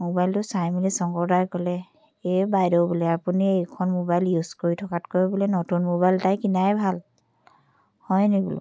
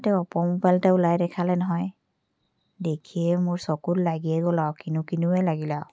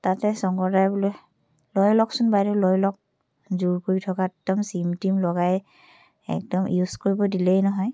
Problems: none marked